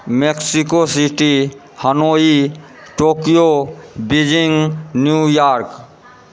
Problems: background conversations at intervals